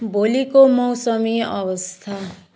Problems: background sounds at intervals